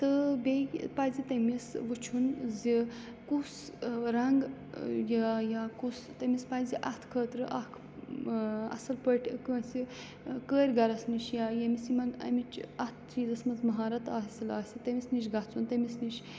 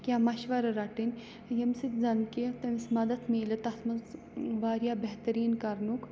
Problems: constant background noise